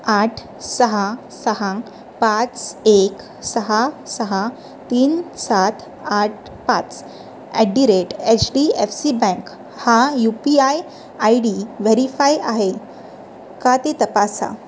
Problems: none marked